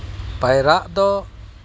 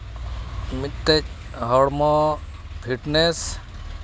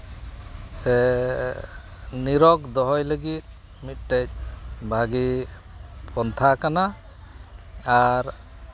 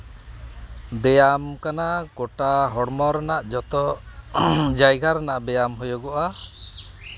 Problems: background sounds at intervals